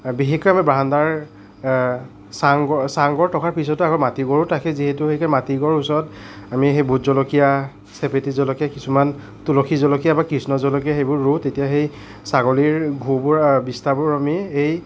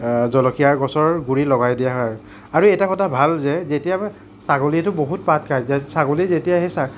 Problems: none marked